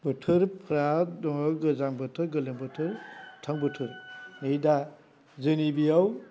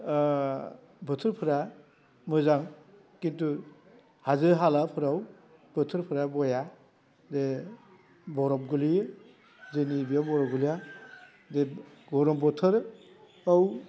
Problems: constant background noise